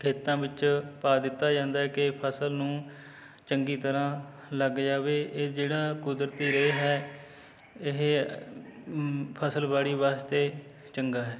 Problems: background conversations at intervals